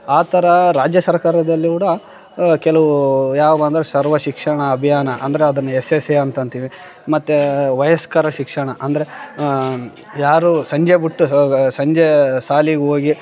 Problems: background sounds at intervals, background conversations at intervals